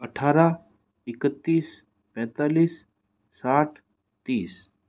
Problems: none marked